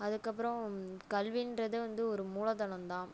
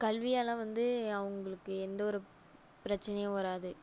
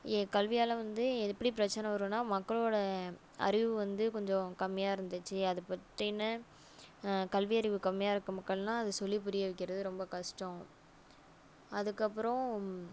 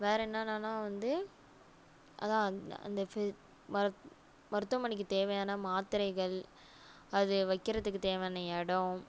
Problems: none marked